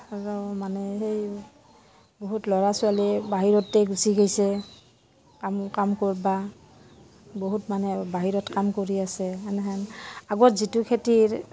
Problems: constant background noise, background conversations at intervals